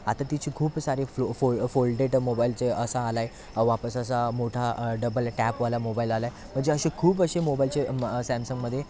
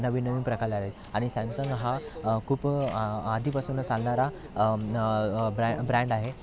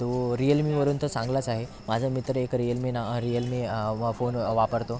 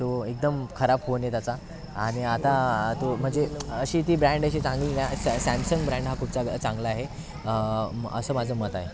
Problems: constant background noise, continuous background conversations